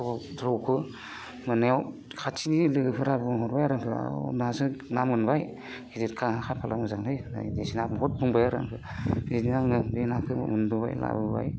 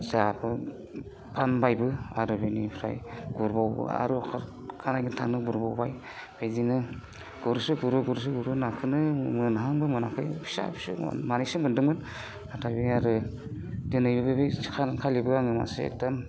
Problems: constant background noise